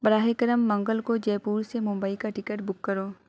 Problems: none marked